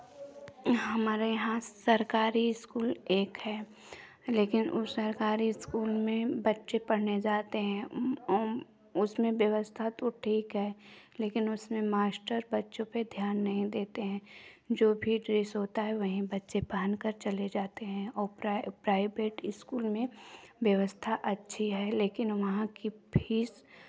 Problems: background sounds at intervals, background conversations at intervals